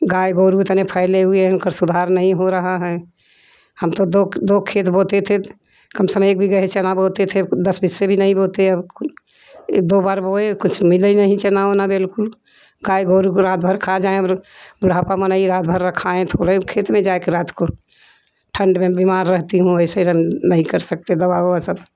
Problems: none marked